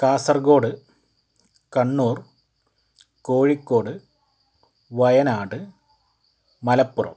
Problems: background sounds at intervals